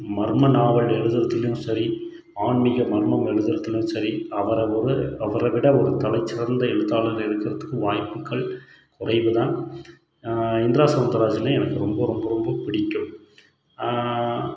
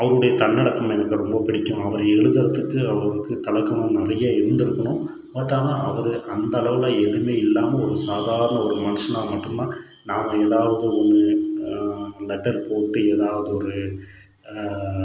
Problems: background sounds at intervals